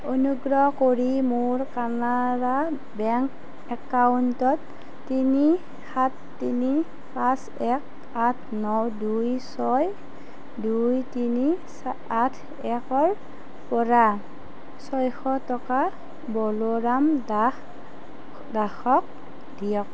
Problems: constant background noise